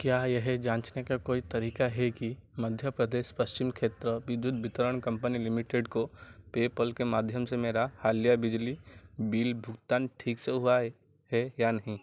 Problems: none marked